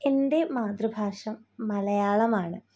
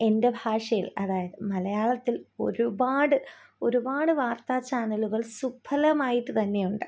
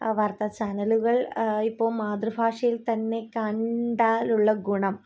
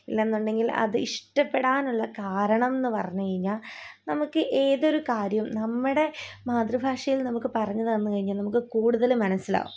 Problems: low volume